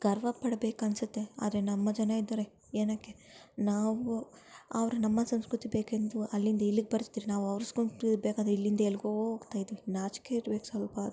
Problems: background sounds at intervals, low volume